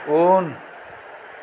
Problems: low volume